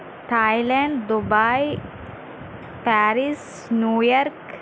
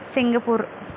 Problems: constant background noise